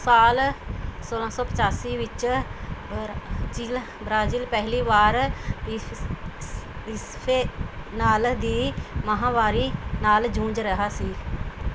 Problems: constant background noise